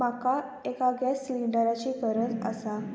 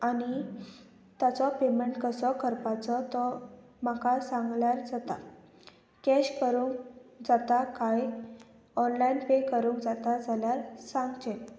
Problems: constant background noise